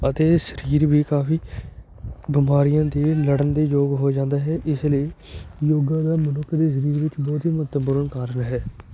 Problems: constant background noise, background conversations at intervals